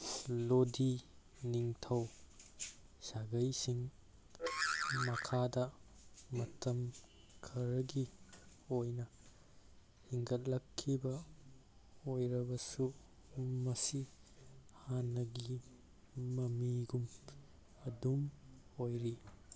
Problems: background sounds at intervals